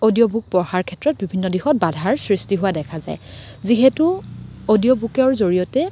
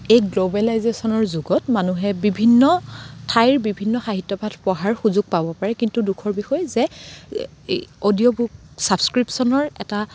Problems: constant background noise